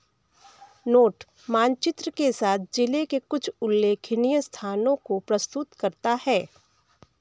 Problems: background sounds at intervals, background conversations at intervals